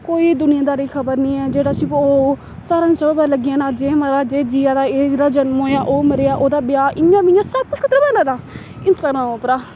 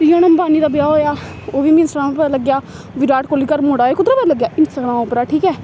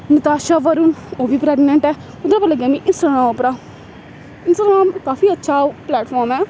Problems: constant background noise